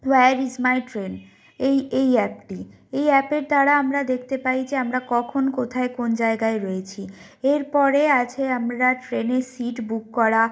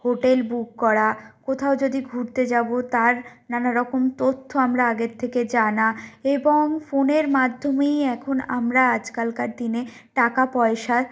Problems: none marked